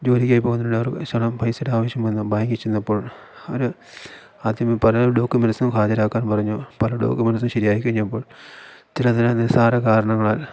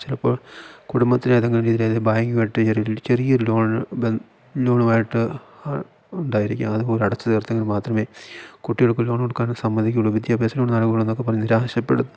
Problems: none marked